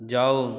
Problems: constant background noise, continuous background conversations